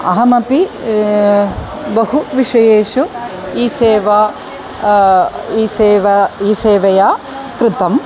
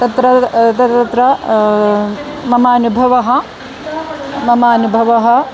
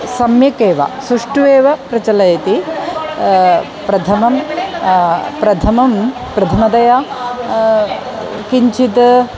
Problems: constant background noise, continuous background conversations